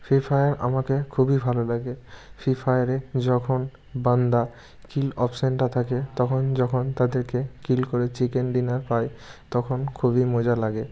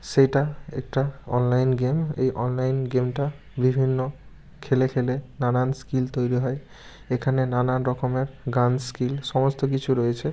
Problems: constant background noise